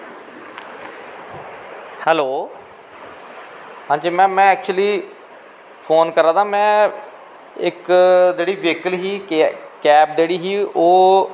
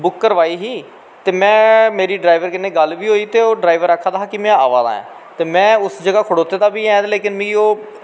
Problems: constant background noise